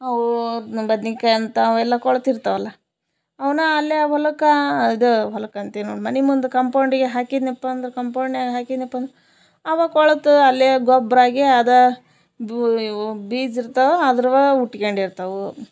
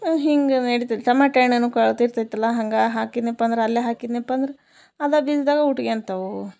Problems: none marked